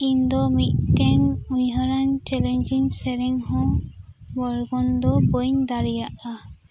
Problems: background sounds at intervals